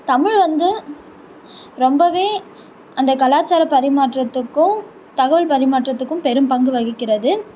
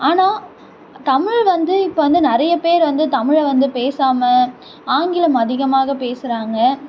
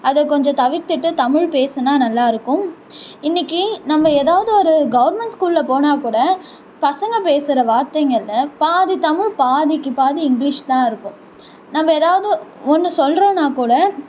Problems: none marked